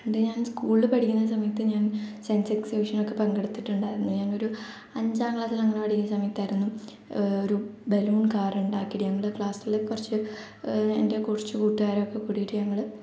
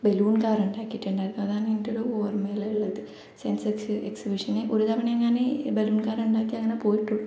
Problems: echo, low volume